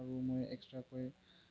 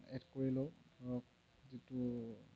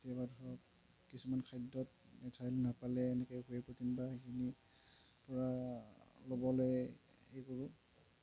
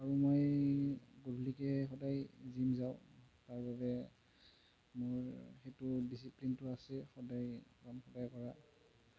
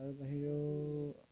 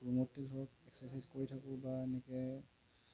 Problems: low volume